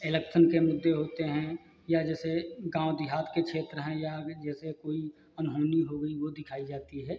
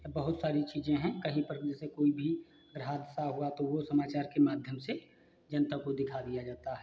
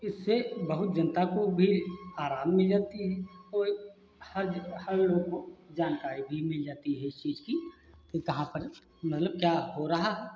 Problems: constant background noise